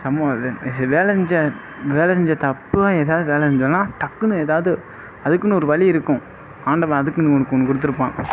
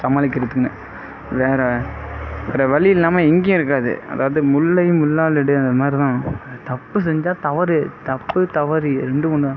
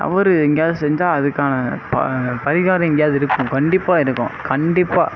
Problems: background sounds at intervals